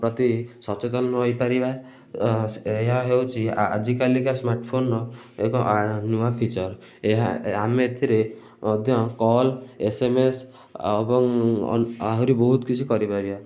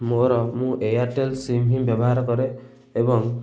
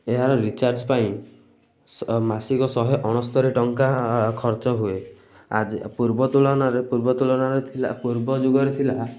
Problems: none marked